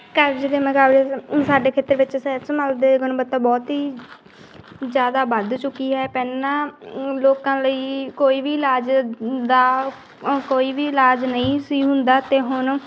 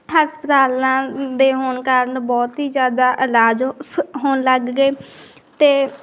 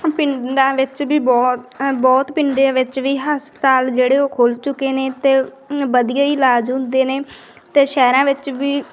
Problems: background sounds at intervals